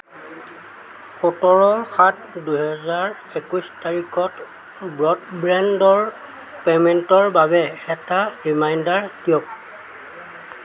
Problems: constant background noise